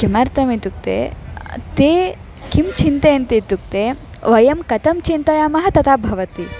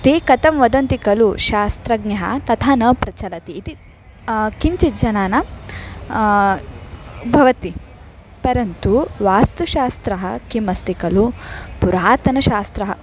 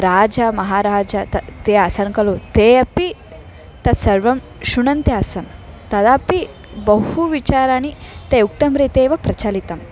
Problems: continuous background conversations